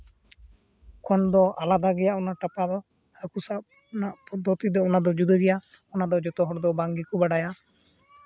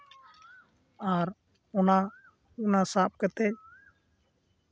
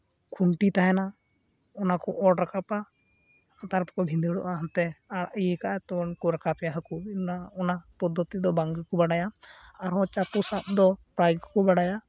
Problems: constant background noise